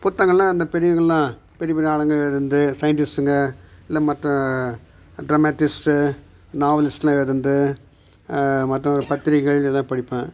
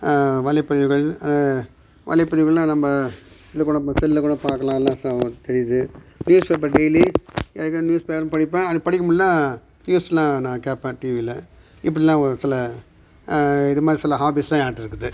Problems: background sounds at intervals